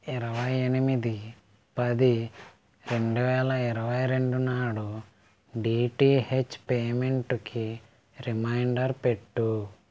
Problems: background sounds at intervals